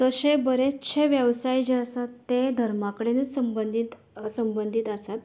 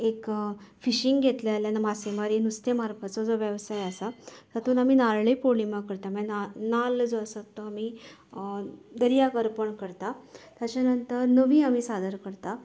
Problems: none marked